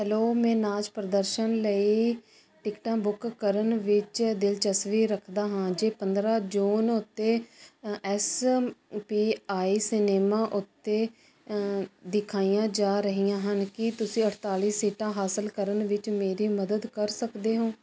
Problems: constant background noise